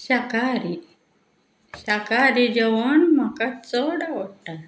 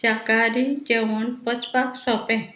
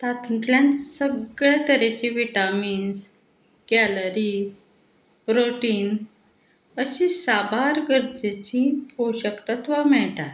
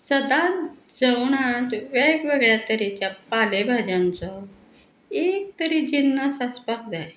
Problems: background sounds at intervals